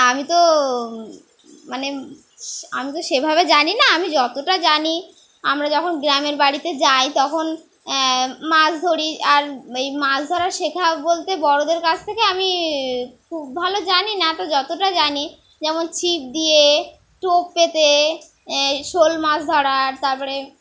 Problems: background sounds at intervals